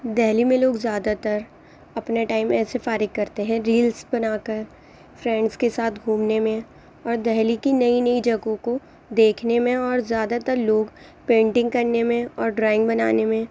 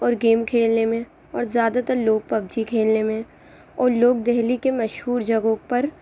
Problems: constant background noise